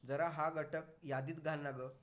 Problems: constant background noise, background conversations at intervals